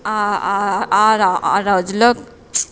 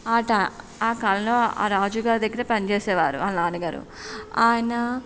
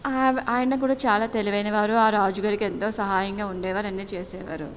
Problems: background sounds at intervals